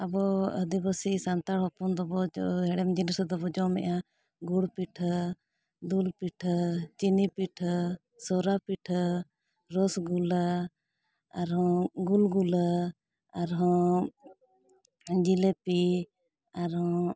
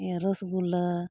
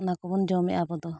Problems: none marked